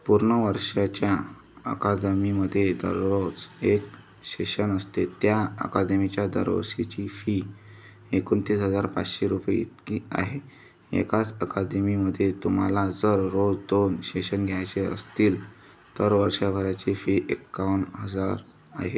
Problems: background sounds at intervals, background conversations at intervals